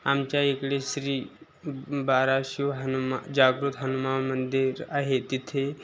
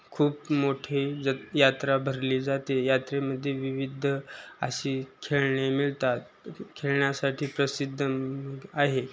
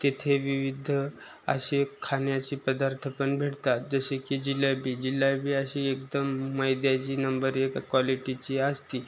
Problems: none marked